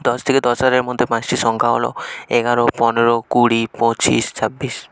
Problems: continuous background conversations